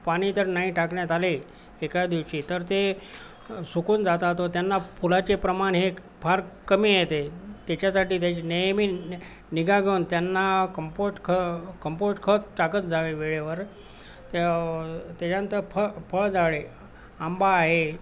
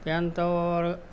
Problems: constant background noise